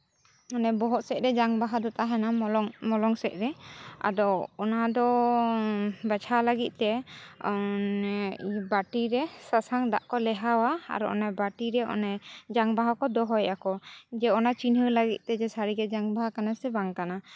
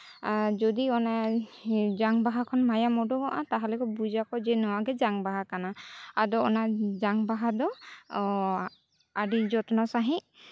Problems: none marked